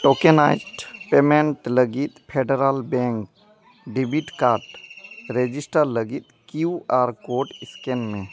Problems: none marked